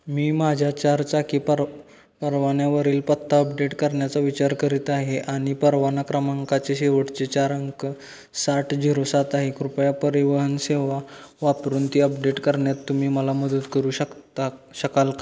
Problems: constant background noise